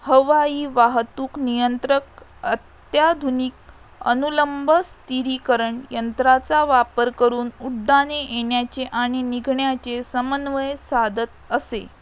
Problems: background sounds at intervals